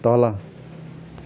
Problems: background sounds at intervals